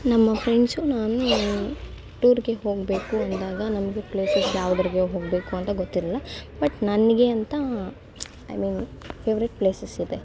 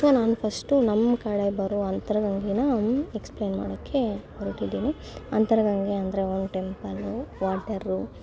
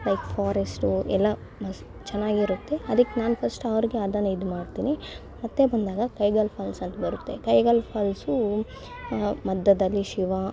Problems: constant background noise